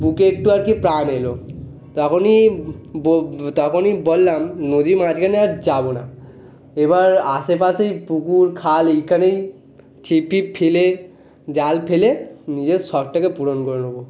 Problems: constant background noise